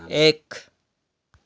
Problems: background conversations at intervals